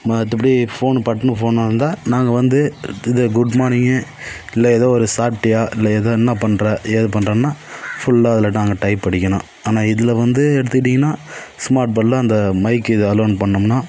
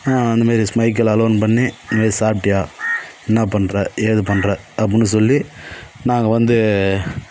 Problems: background sounds at intervals